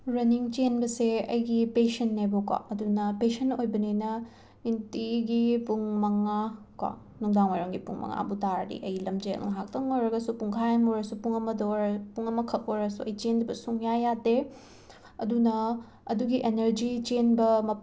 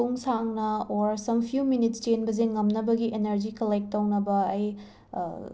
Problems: none marked